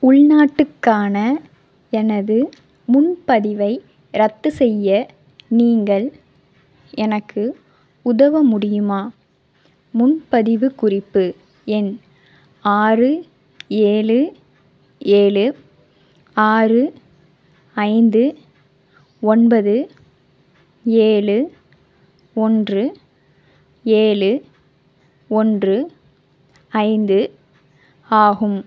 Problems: none marked